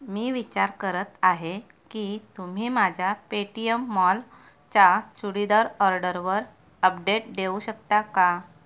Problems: background sounds at intervals